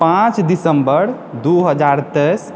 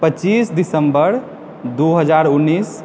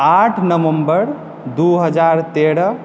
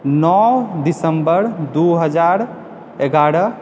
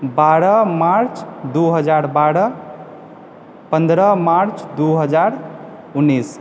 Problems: none marked